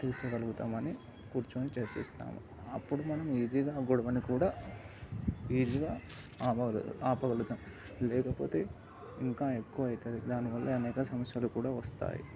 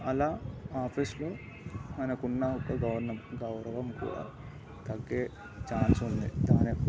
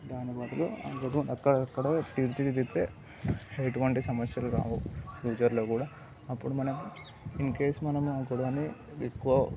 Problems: background sounds at intervals, background conversations at intervals